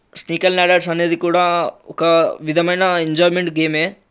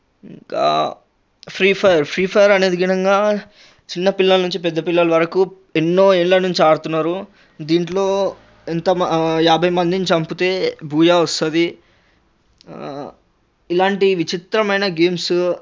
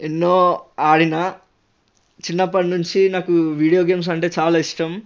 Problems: constant background noise